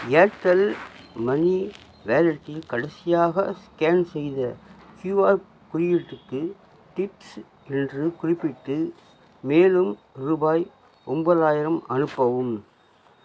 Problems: none marked